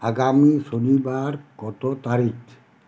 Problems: constant background noise